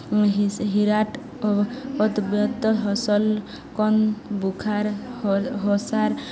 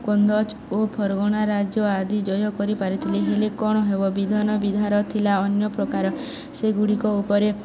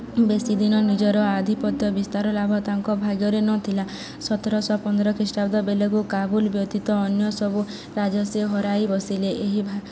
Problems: constant background noise, continuous background conversations